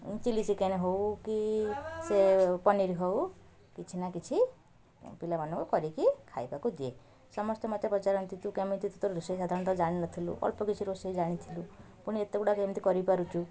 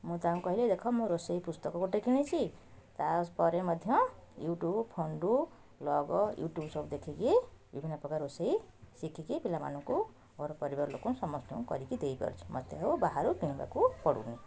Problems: continuous background conversations